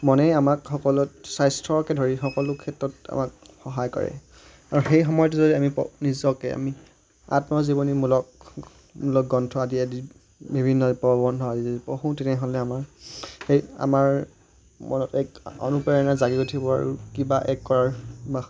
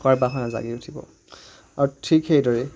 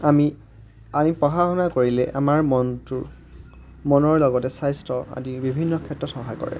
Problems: background sounds at intervals